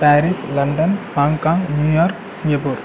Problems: background sounds at intervals